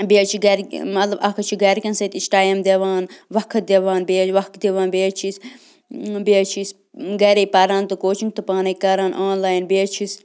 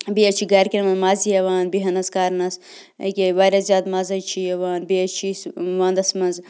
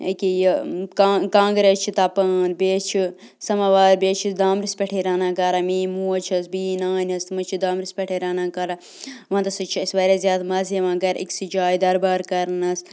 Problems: none marked